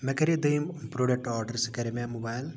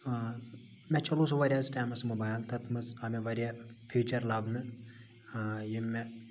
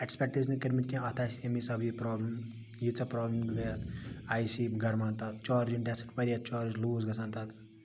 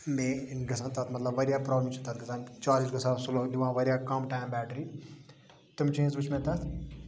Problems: constant background noise, low volume